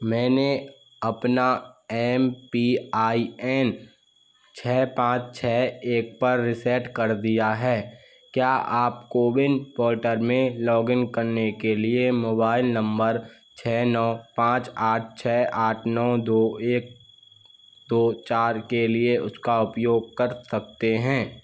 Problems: constant background noise